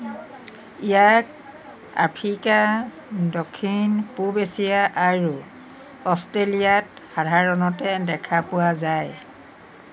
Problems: none marked